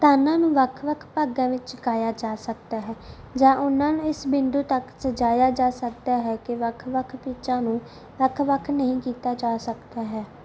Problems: background sounds at intervals